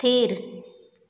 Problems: echo